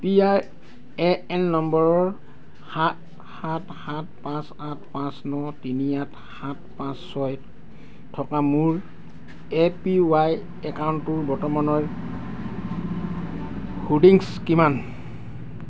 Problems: none marked